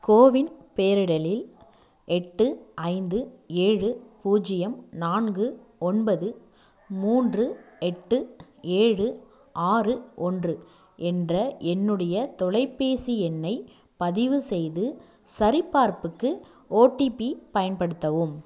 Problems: none marked